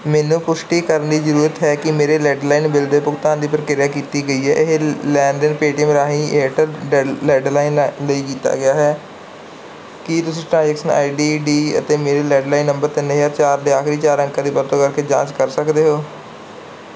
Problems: background sounds at intervals